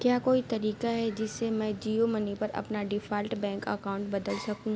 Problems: background sounds at intervals